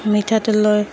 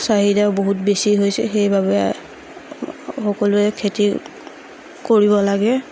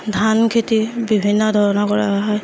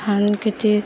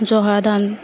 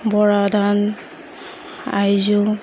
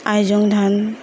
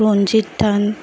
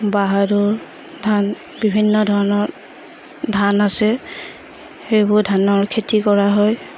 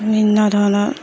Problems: background sounds at intervals, background conversations at intervals